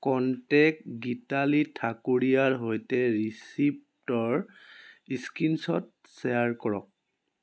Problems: none marked